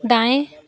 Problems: background sounds at intervals